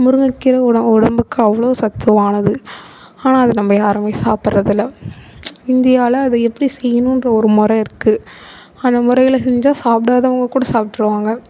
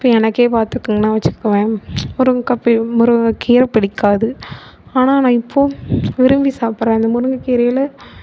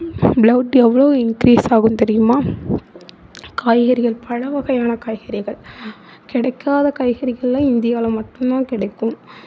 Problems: none marked